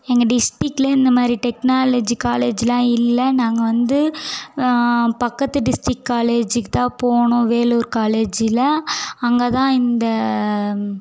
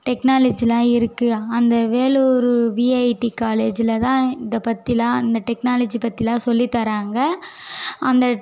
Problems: background conversations at intervals